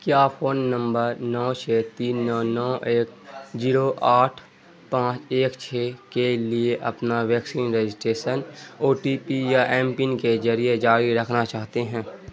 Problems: constant background noise